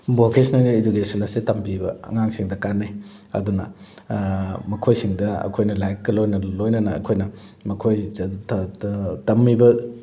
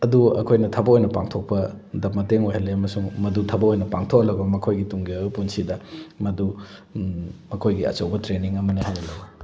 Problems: none marked